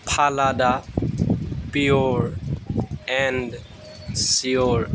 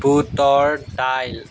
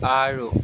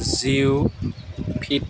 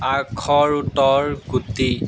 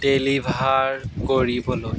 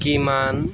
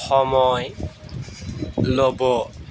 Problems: background sounds at intervals